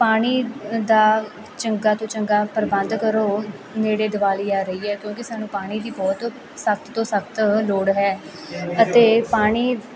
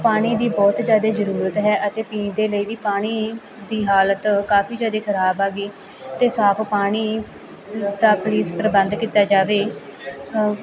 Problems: continuous background conversations